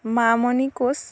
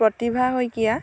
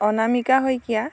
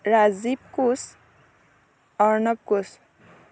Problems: background sounds at intervals